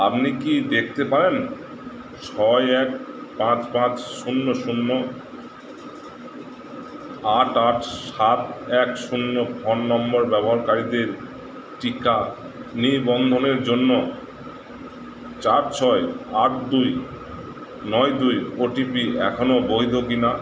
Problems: constant background noise